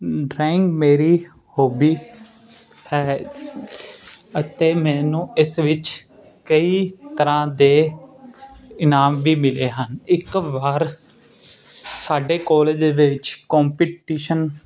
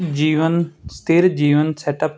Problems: constant background noise